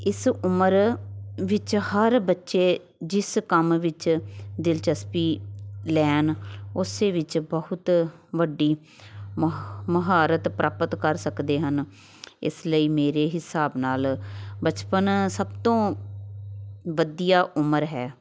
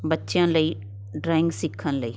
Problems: background sounds at intervals